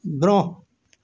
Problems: constant background noise